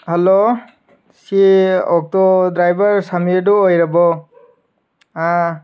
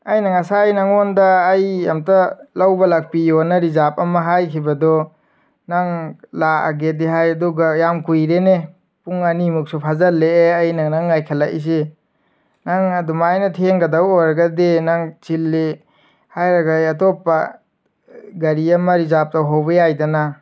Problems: background sounds at intervals